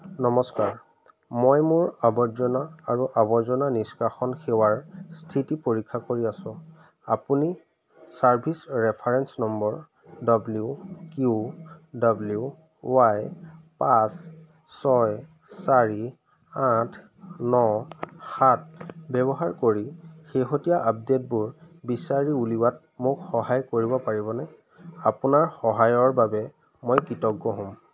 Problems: constant background noise